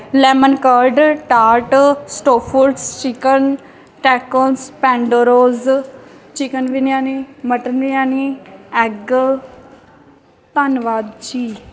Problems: background sounds at intervals